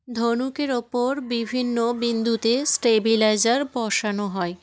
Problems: continuous background conversations